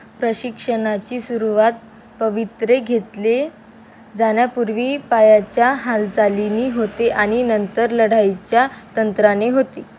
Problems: constant background noise